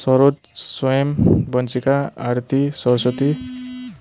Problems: constant background noise